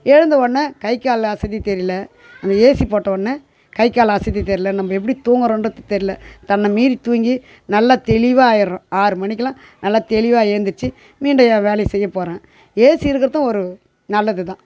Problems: constant background noise